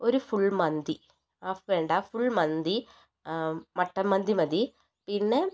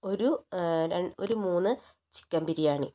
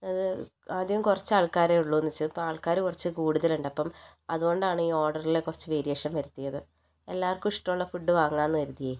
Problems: low volume